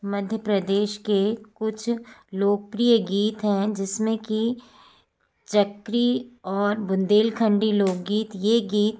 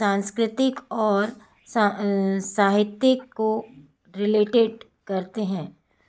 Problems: background sounds at intervals